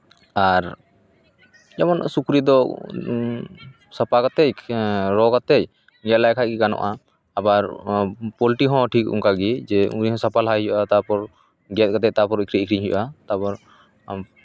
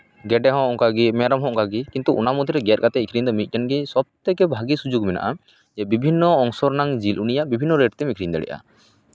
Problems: none marked